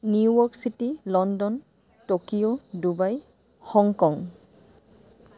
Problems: constant background noise